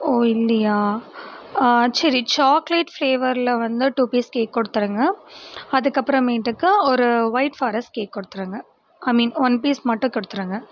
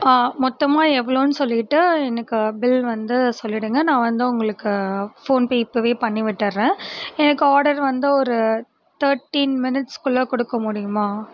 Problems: constant background noise